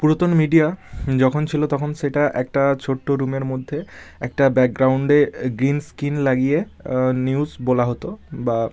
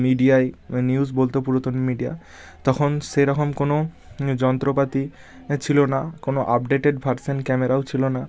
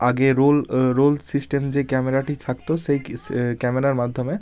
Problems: none marked